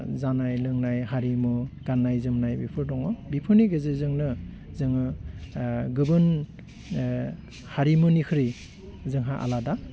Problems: low volume